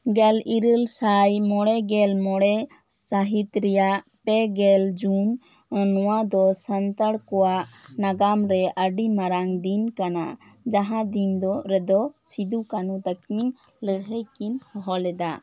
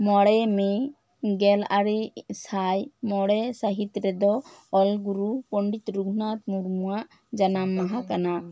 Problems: none marked